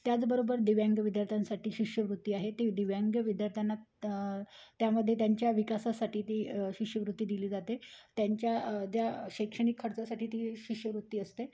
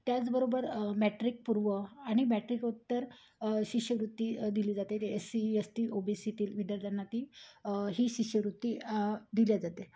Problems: none marked